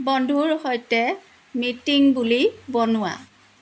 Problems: constant background noise